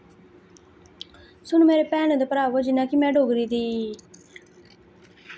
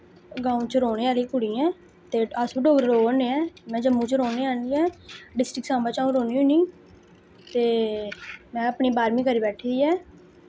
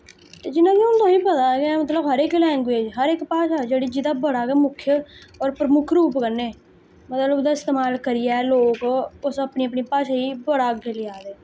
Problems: background sounds at intervals